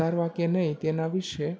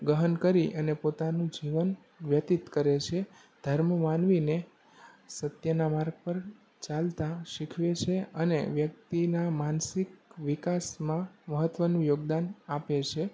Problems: none marked